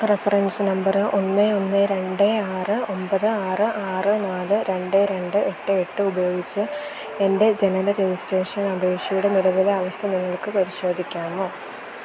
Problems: constant background noise